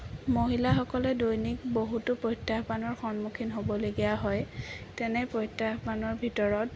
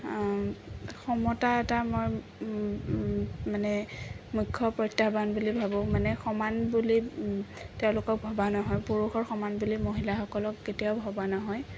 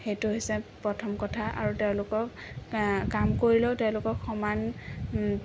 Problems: none marked